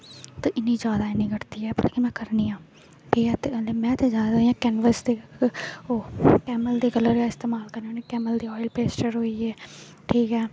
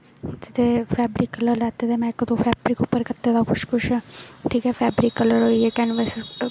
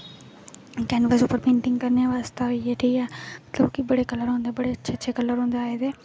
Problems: none marked